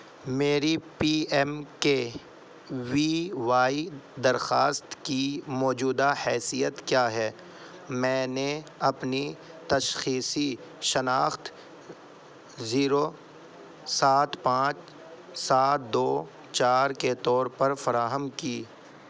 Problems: none marked